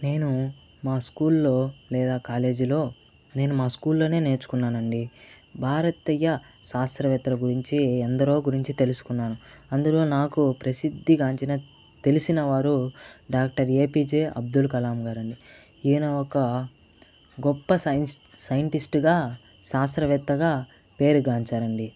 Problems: constant background noise